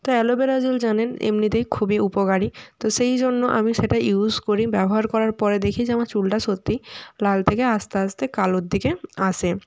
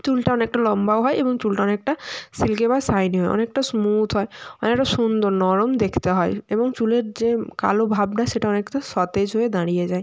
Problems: none marked